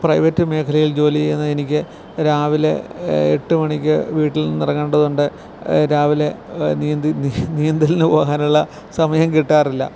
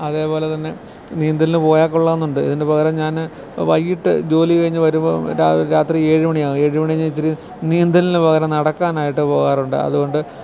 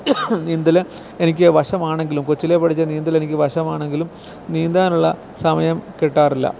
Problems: background sounds at intervals